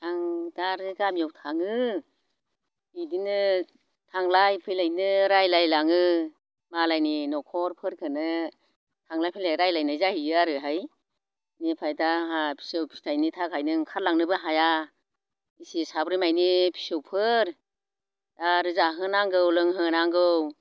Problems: none marked